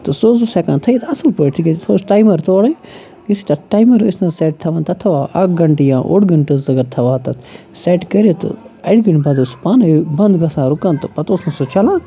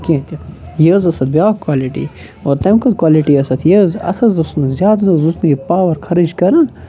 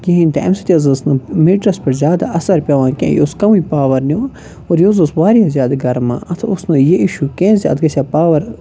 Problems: constant background noise, continuous background conversations